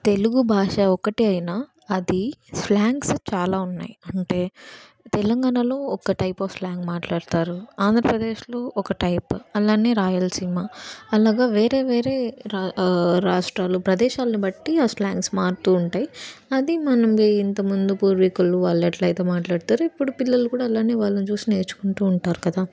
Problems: background sounds at intervals